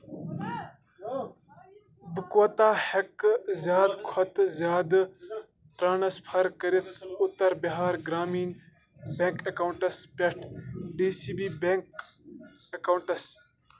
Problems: constant background noise, background conversations at intervals